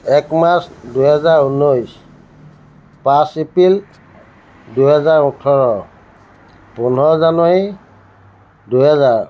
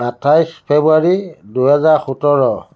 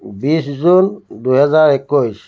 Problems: constant background noise